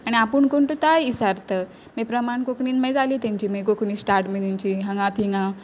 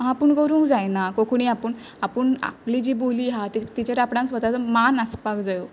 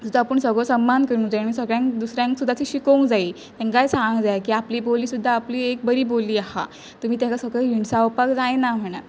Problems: background sounds at intervals